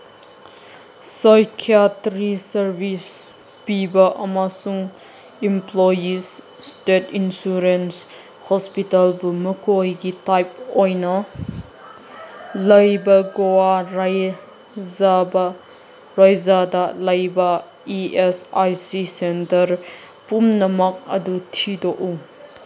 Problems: constant background noise